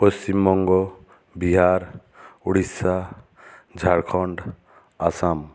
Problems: none marked